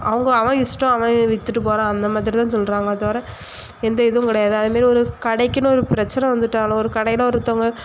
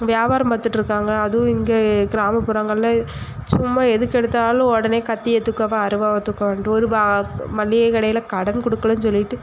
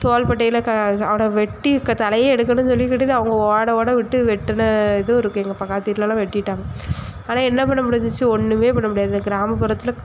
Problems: constant background noise